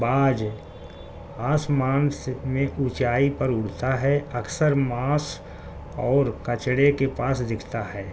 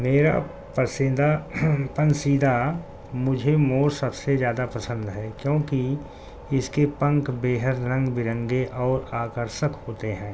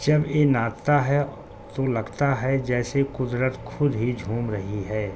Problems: constant background noise